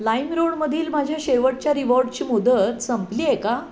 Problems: constant background noise, background conversations at intervals